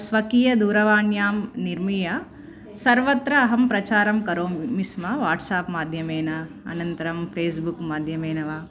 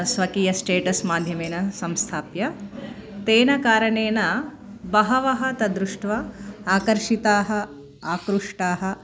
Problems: none marked